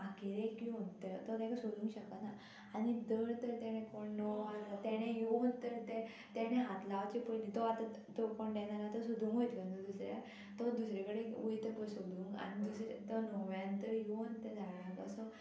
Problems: constant background noise